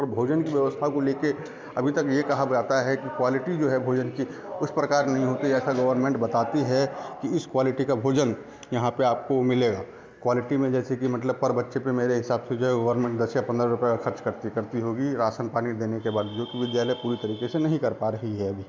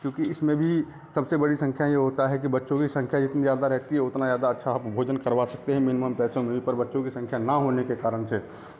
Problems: constant background noise, continuous background conversations